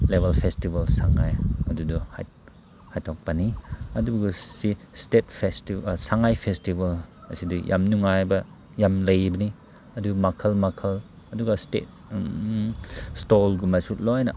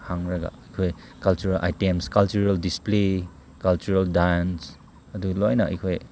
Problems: background sounds at intervals